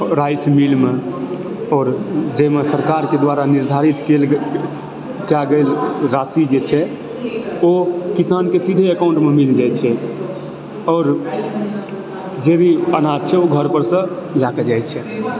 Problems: continuous background conversations